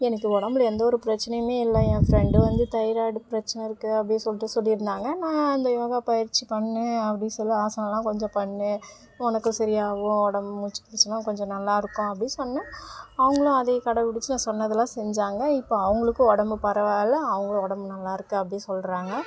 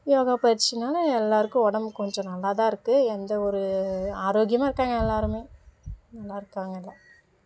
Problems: constant background noise